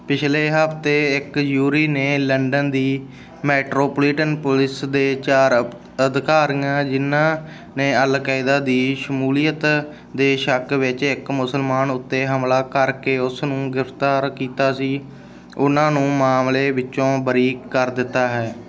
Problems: background sounds at intervals